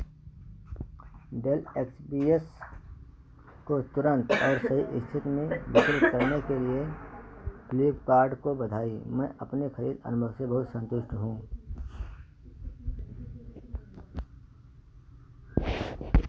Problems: background sounds at intervals